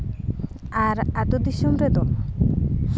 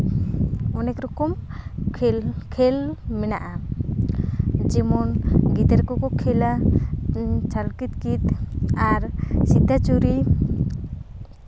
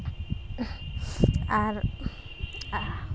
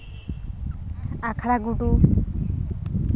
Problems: none marked